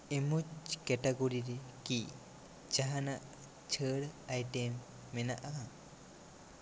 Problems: constant background noise